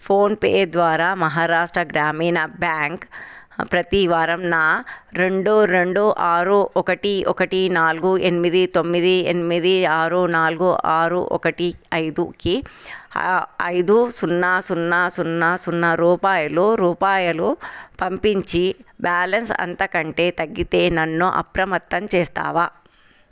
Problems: none marked